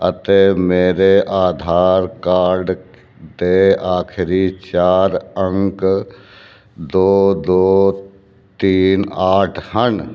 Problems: none marked